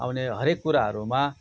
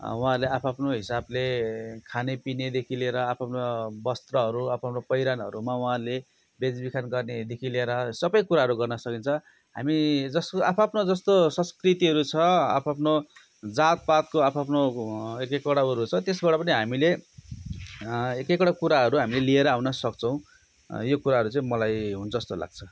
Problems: constant background noise